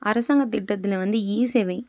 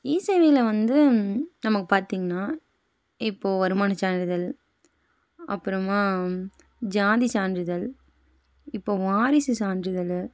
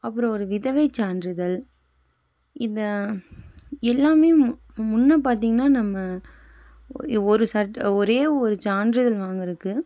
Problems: background conversations at intervals